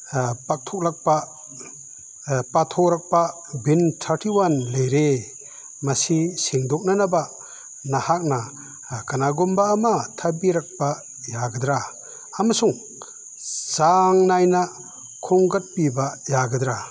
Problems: none marked